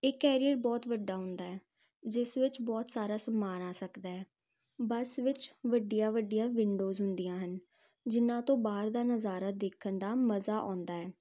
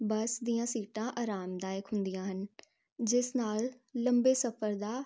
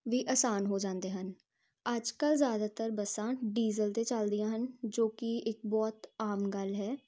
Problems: constant background noise